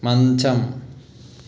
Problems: constant background noise